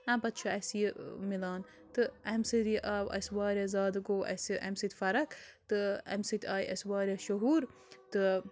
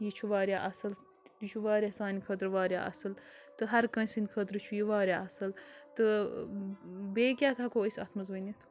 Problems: background sounds at intervals, low volume